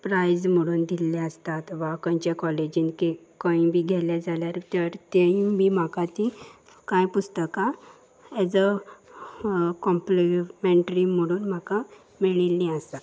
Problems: constant background noise